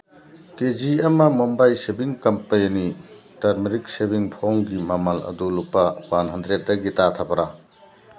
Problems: constant background noise